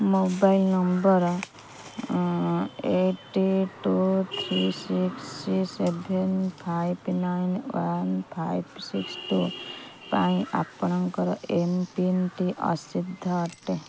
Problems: constant background noise